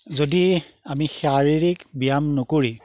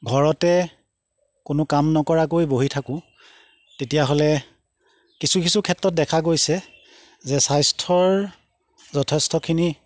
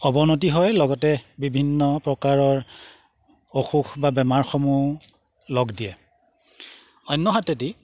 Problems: background sounds at intervals